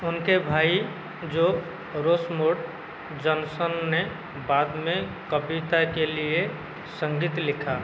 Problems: constant background noise